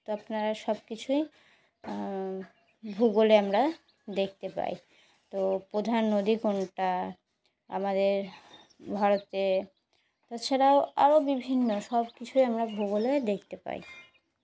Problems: background sounds at intervals